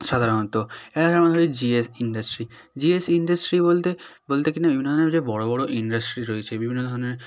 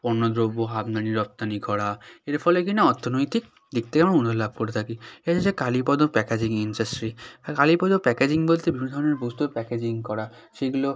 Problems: background conversations at intervals